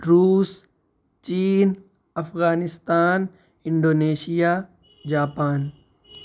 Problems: background sounds at intervals